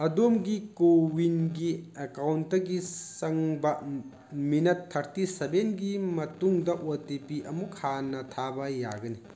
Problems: background sounds at intervals